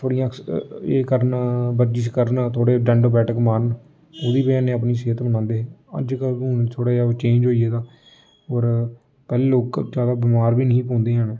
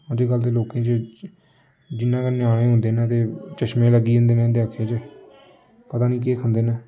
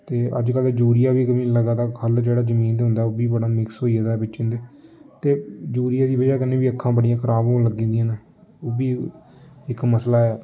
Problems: constant background noise